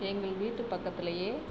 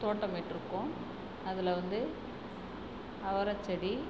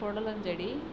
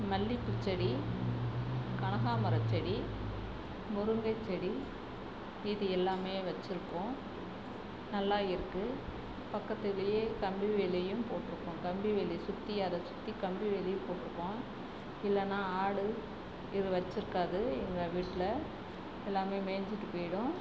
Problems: constant background noise, low volume